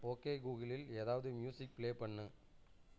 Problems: low volume